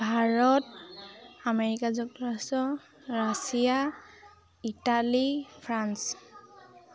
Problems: background sounds at intervals